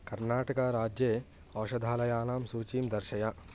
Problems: constant background noise